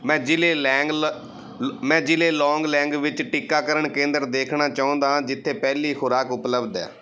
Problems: background sounds at intervals